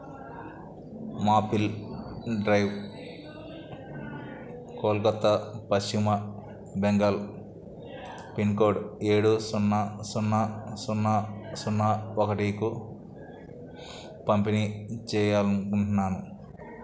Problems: none marked